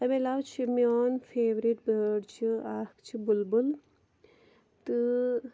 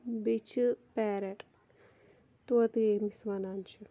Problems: none marked